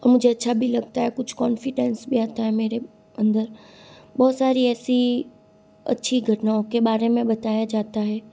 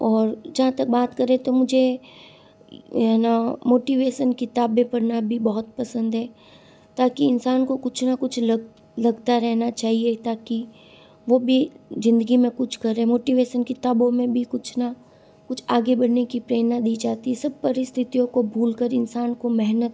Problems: constant background noise